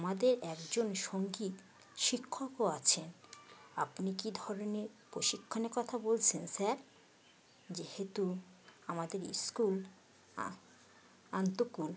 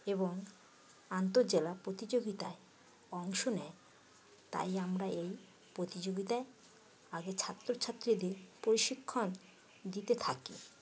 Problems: none marked